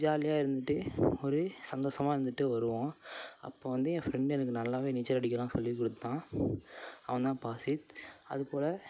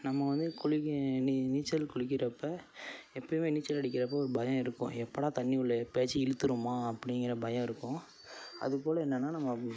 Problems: constant background noise